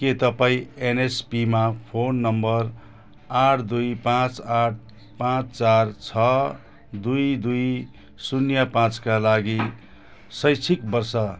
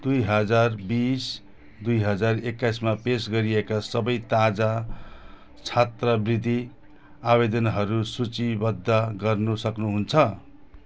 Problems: none marked